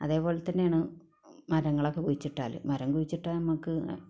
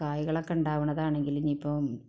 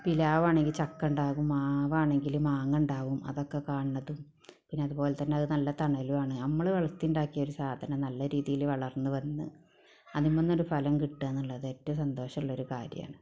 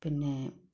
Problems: background sounds at intervals